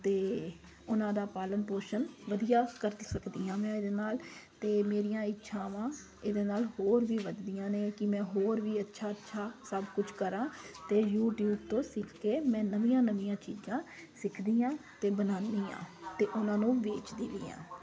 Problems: constant background noise